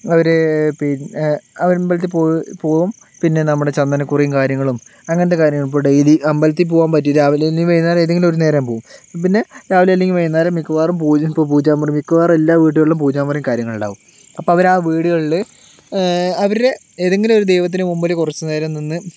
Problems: constant background noise